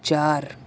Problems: constant background noise